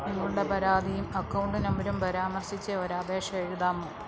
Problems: low volume